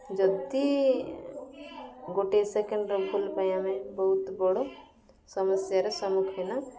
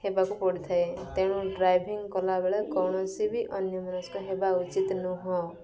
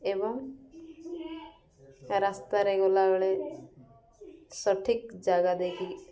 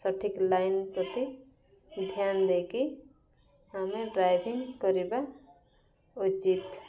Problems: background sounds at intervals, background conversations at intervals